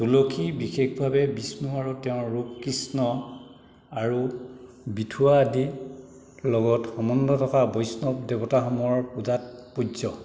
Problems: none marked